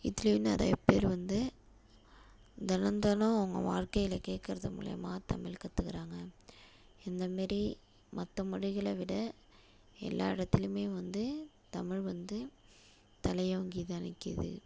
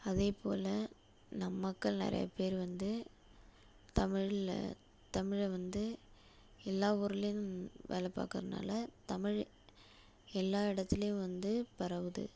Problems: constant background noise